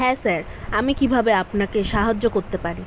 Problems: none marked